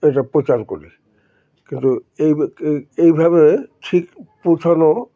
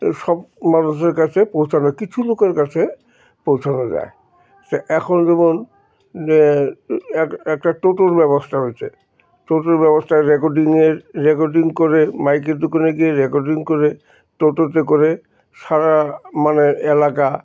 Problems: constant background noise, background conversations at intervals